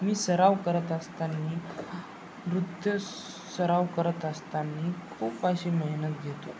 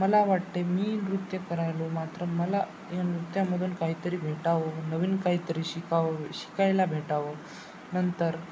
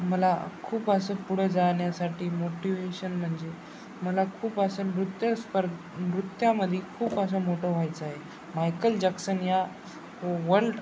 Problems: constant background noise, background conversations at intervals